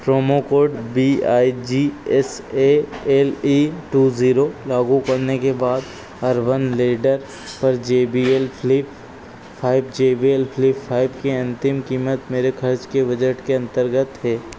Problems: constant background noise